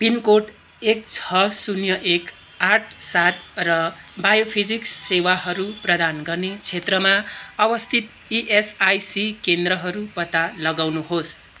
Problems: continuous background conversations